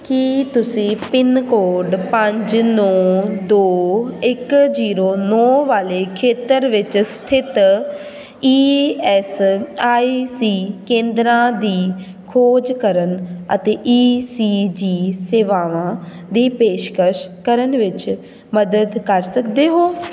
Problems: constant background noise, background conversations at intervals